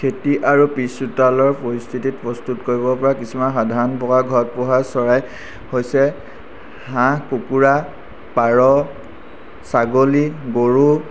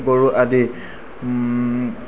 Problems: constant background noise